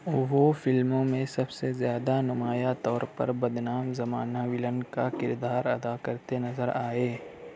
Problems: none marked